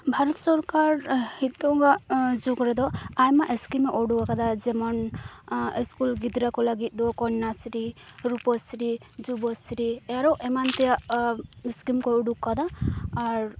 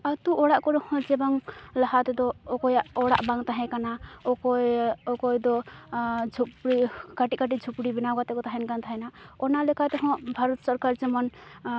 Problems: constant background noise